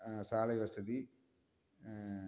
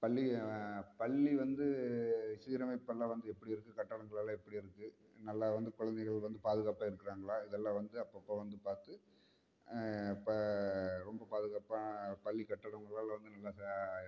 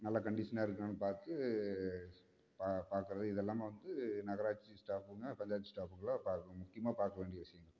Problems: background sounds at intervals, low volume